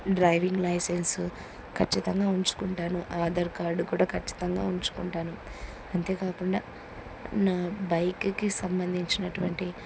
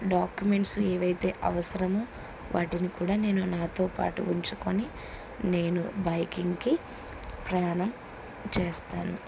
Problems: none marked